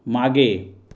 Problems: none marked